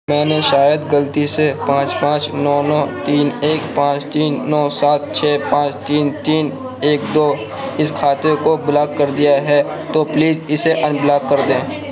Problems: constant background noise, background conversations at intervals